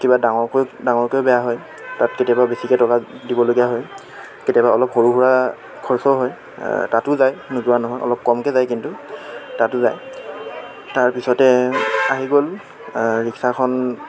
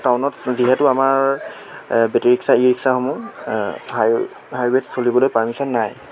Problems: constant background noise